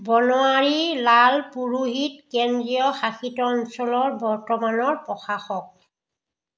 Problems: none marked